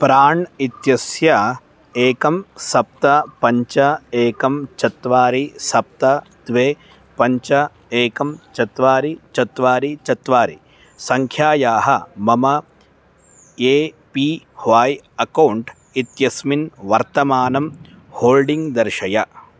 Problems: constant background noise